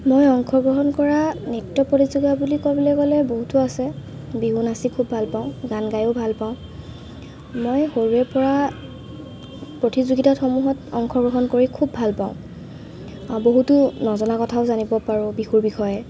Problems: constant background noise